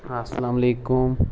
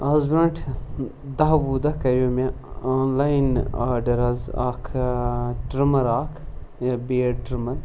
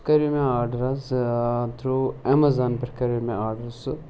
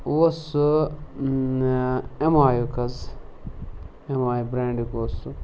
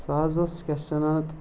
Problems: constant background noise